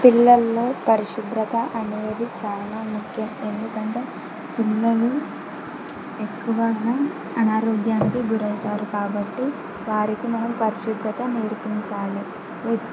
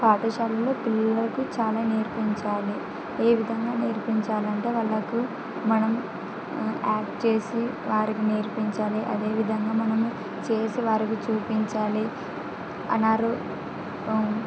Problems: constant background noise